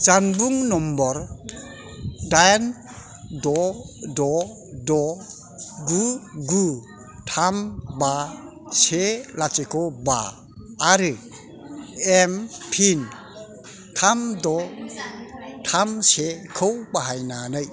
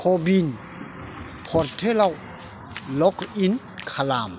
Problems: background sounds at intervals